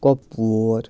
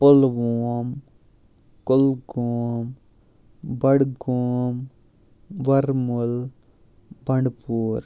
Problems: none marked